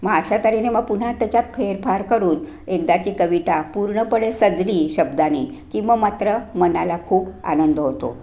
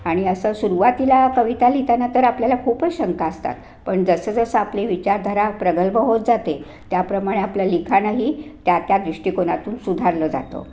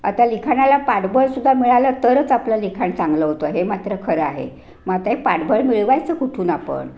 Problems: none marked